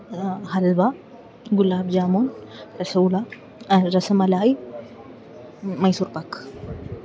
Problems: low volume